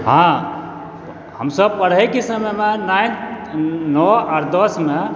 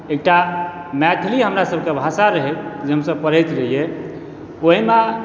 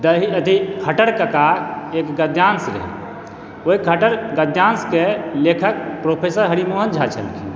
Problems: background sounds at intervals